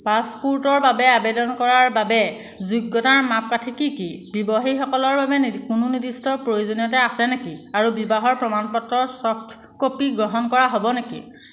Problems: background sounds at intervals